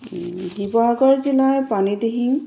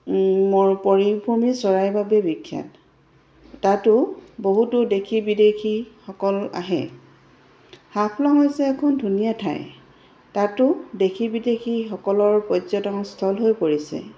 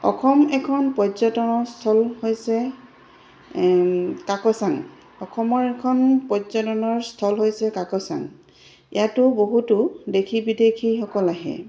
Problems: none marked